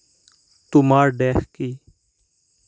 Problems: none marked